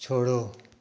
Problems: constant background noise, echo